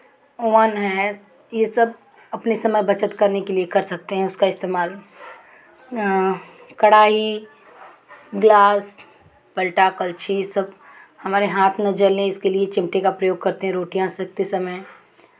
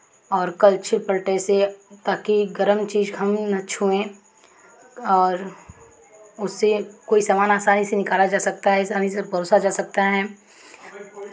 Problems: background sounds at intervals, background conversations at intervals